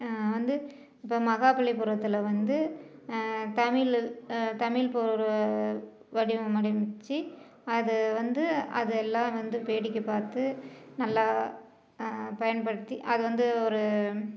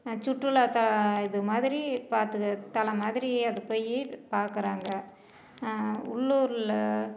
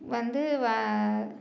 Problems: background conversations at intervals